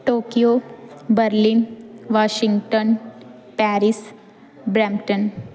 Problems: background sounds at intervals